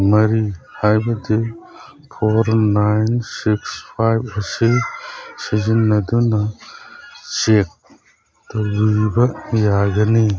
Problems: background sounds at intervals, background conversations at intervals